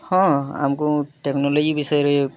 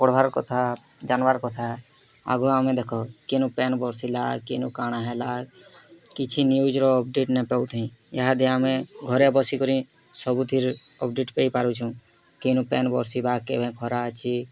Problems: constant background noise, continuous background conversations